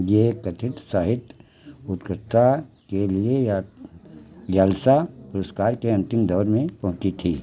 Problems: none marked